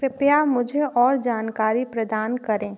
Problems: background sounds at intervals